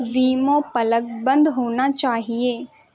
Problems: constant background noise, background conversations at intervals